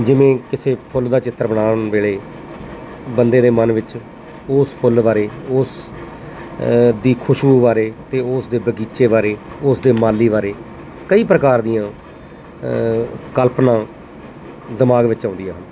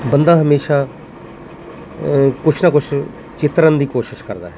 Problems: constant background noise